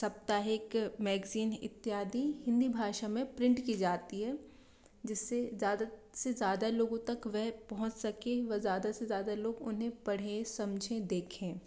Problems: low volume